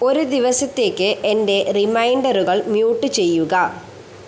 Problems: constant background noise